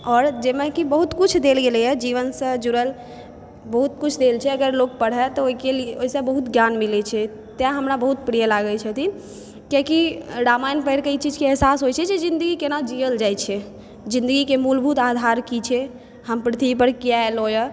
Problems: background sounds at intervals